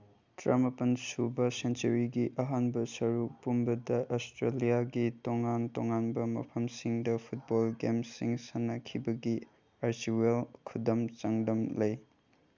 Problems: none marked